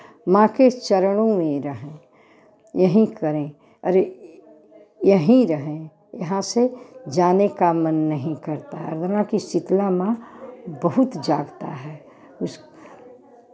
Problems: constant background noise, continuous background conversations